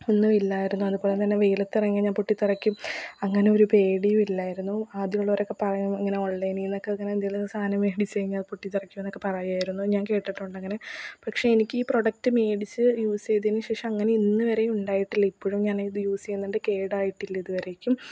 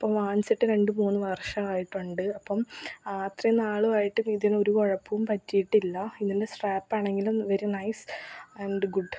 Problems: background sounds at intervals, low volume